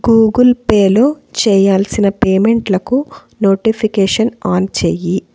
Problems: constant background noise